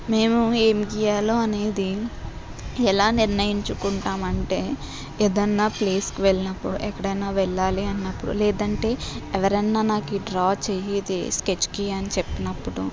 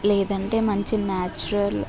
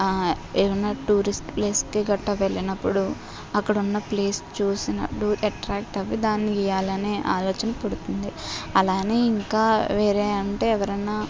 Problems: constant background noise